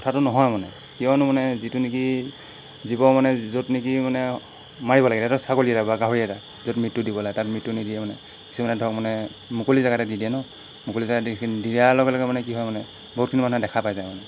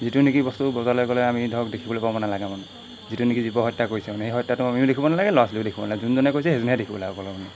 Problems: constant background noise